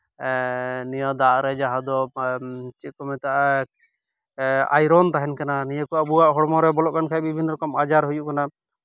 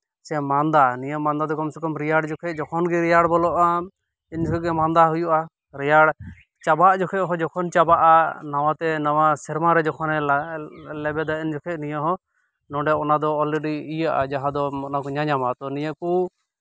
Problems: none marked